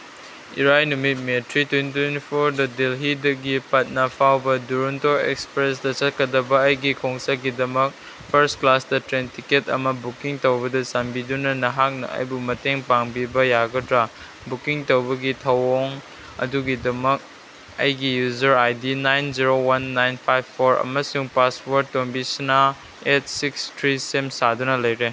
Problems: background sounds at intervals